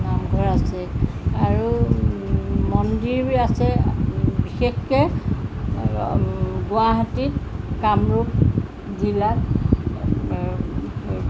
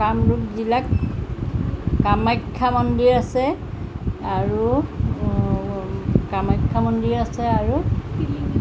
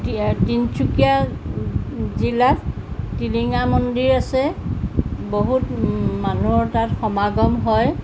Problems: none marked